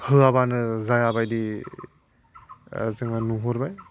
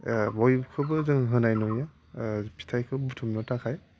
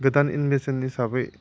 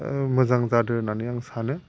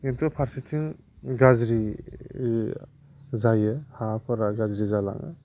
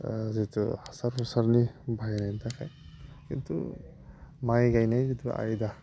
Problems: constant background noise